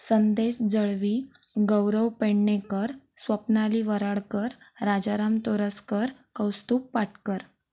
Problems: background sounds at intervals